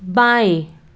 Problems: none marked